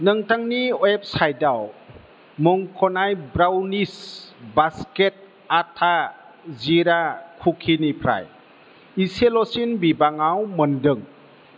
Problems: constant background noise